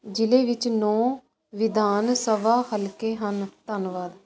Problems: constant background noise